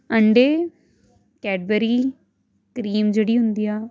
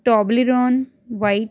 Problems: none marked